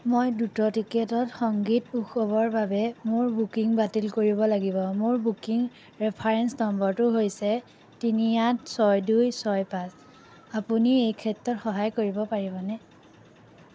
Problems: none marked